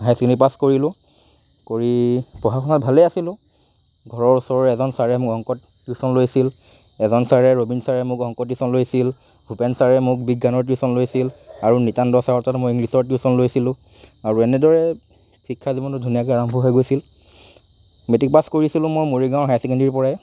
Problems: constant background noise